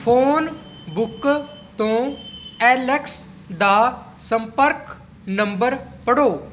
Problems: none marked